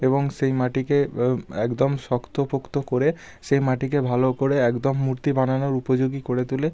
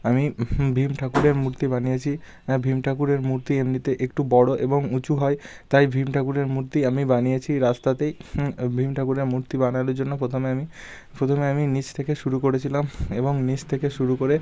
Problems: none marked